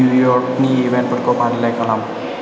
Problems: none marked